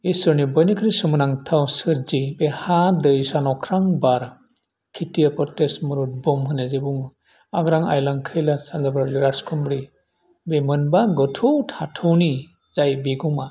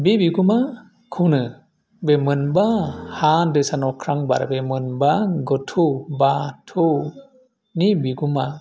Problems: none marked